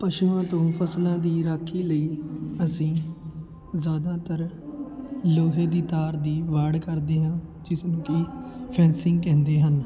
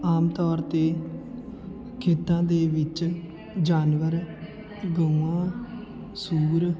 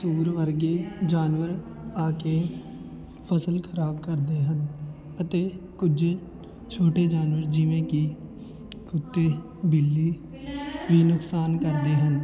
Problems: continuous background conversations